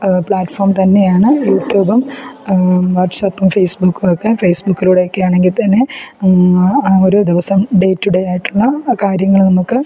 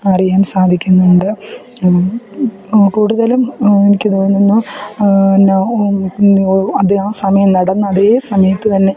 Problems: background sounds at intervals